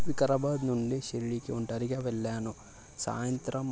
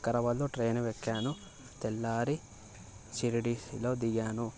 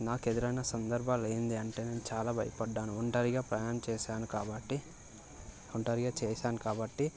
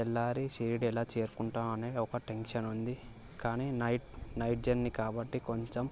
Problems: constant background noise